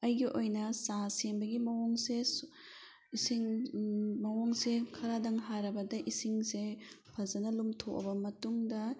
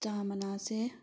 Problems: background sounds at intervals